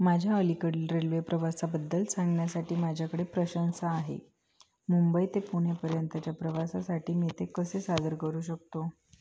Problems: constant background noise, echo, low volume